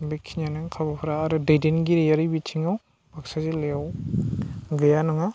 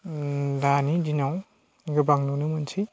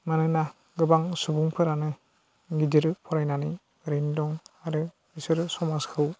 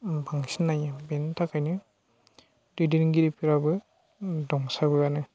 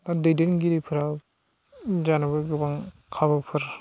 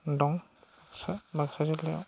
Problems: constant background noise